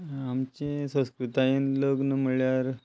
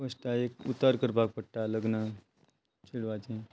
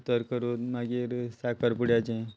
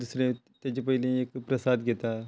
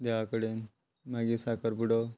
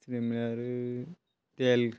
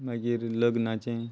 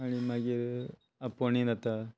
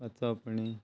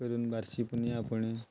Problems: constant background noise